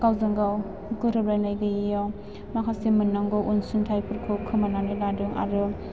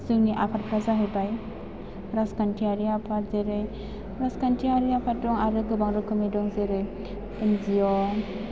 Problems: background sounds at intervals